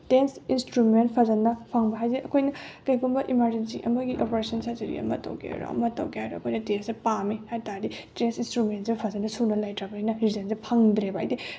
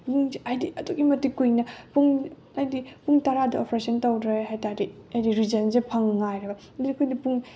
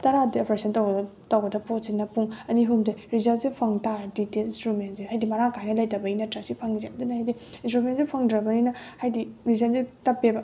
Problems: background sounds at intervals